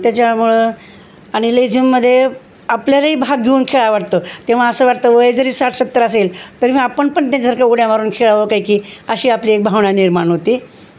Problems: constant background noise